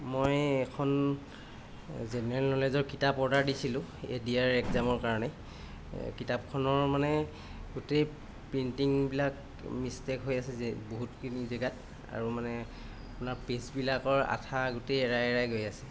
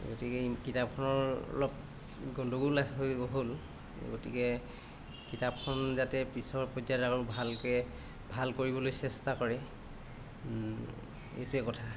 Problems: constant background noise